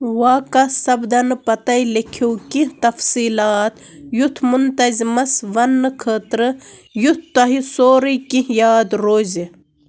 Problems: constant background noise